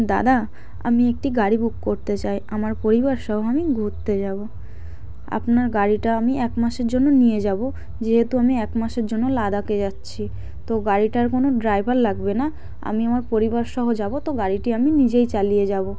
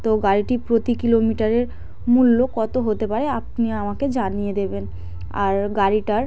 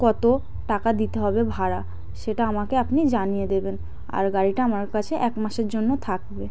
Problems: none marked